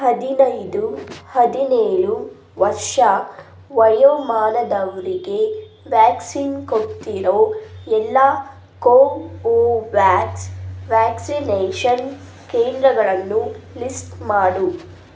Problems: none marked